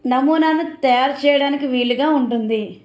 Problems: background sounds at intervals